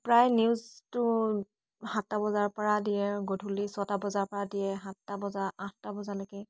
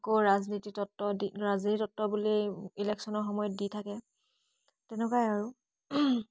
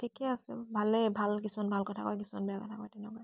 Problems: none marked